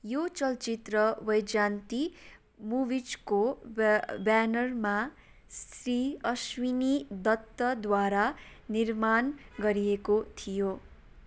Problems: background sounds at intervals